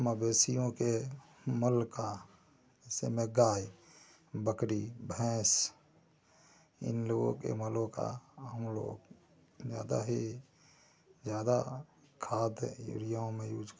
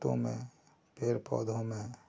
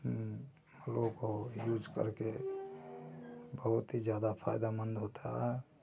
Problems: constant background noise, low volume